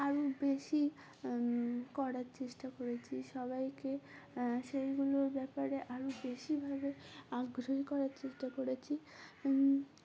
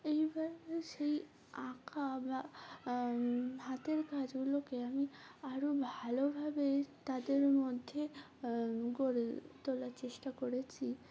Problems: background sounds at intervals, background conversations at intervals